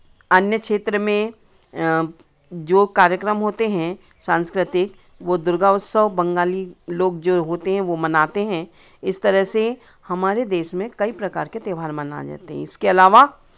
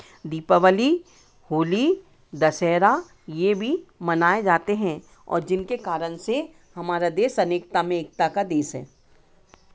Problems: constant background noise